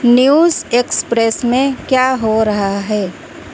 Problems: constant background noise